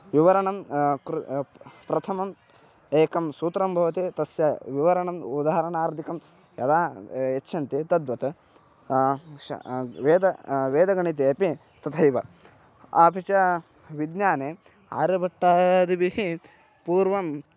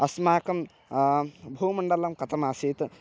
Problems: background sounds at intervals